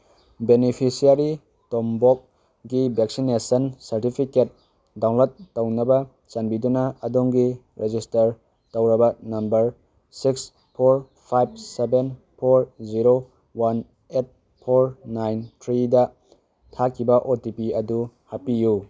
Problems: none marked